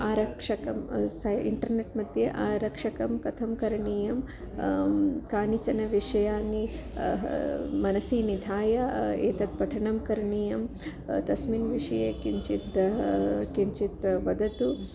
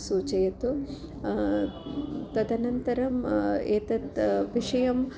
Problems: constant background noise, continuous background conversations